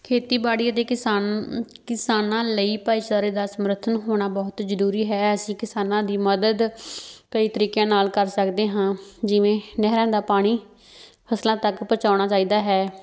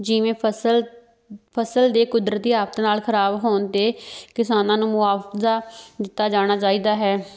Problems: background sounds at intervals